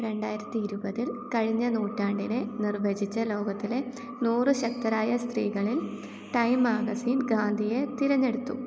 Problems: low volume